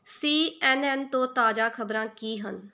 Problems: none marked